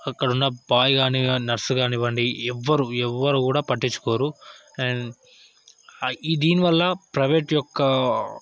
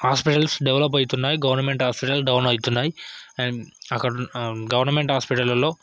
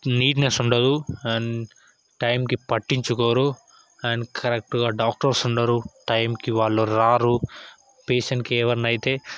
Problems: background conversations at intervals